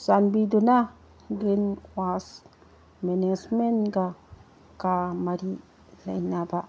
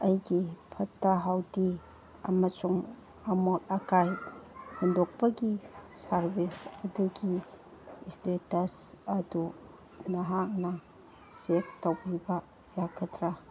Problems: background conversations at intervals